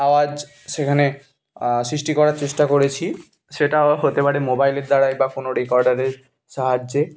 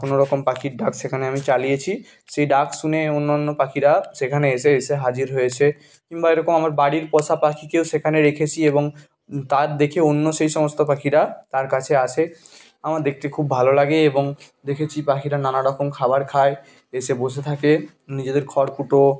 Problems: background sounds at intervals, background conversations at intervals